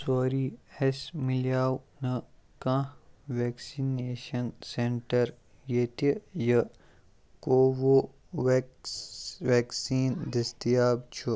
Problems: background conversations at intervals